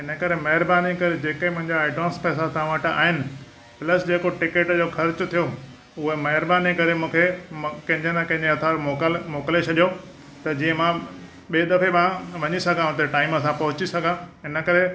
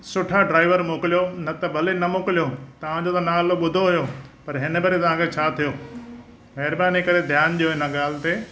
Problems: constant background noise